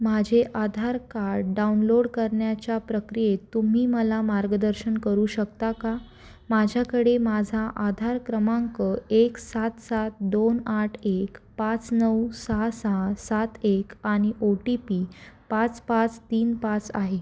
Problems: constant background noise